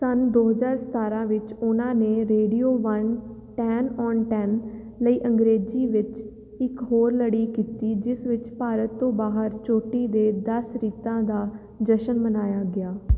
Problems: none marked